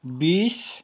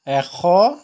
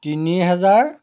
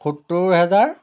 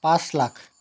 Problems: background sounds at intervals